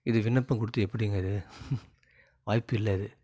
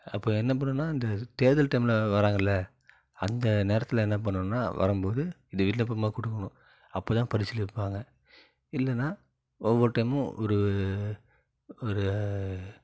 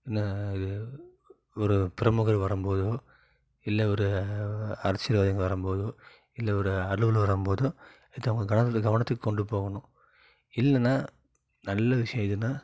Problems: low volume